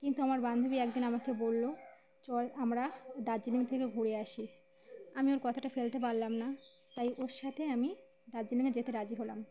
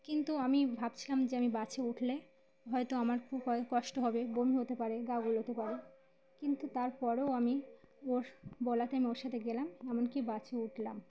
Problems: background sounds at intervals, background conversations at intervals